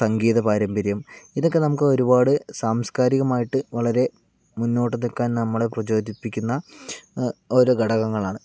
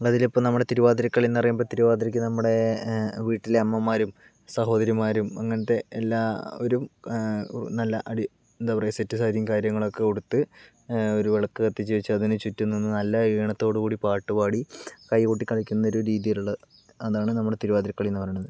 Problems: none marked